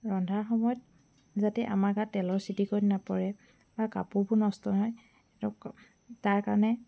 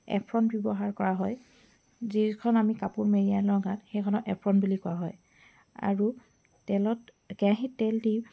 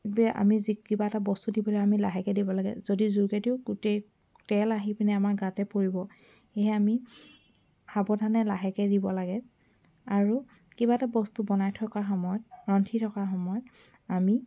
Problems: constant background noise